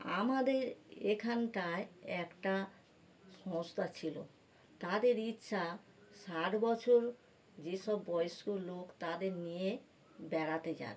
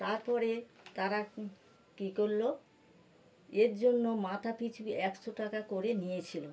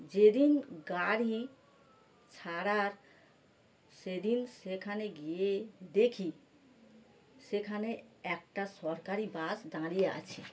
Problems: background sounds at intervals